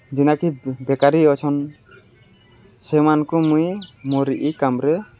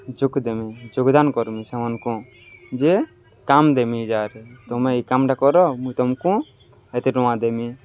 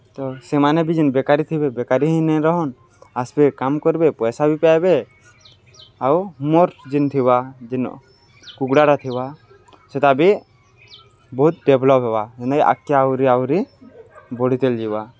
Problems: none marked